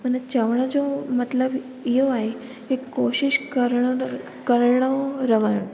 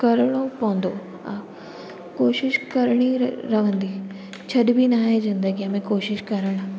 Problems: constant background noise, echo